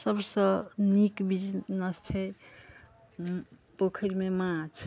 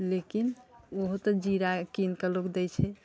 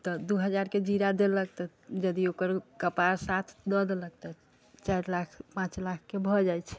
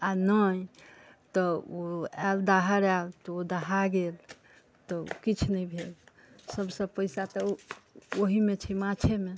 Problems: background conversations at intervals